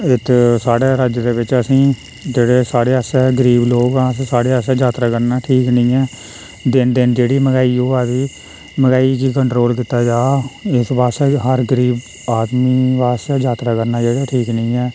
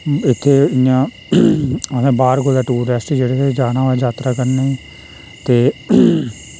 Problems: constant background noise